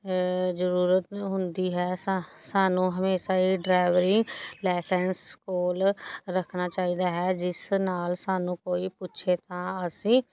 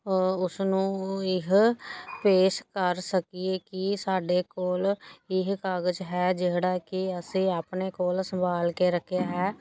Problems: background sounds at intervals